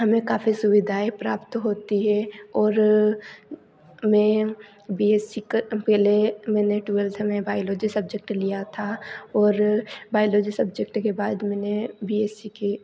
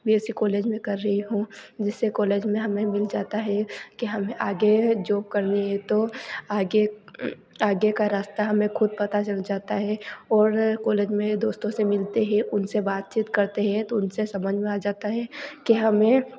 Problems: background sounds at intervals